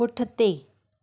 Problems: none marked